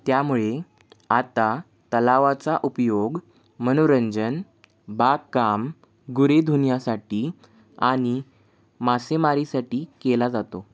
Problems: none marked